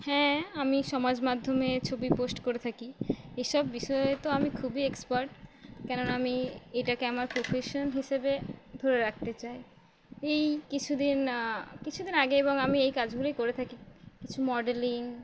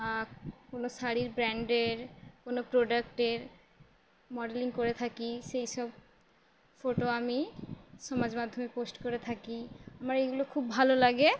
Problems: constant background noise